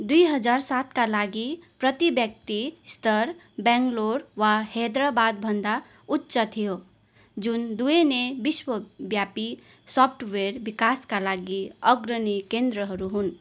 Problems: constant background noise